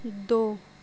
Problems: background sounds at intervals